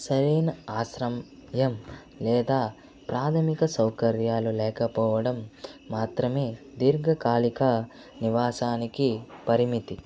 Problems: constant background noise